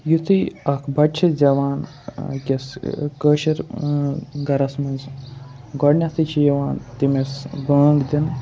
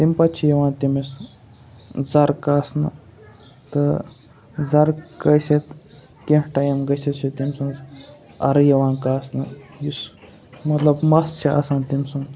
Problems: background sounds at intervals, background conversations at intervals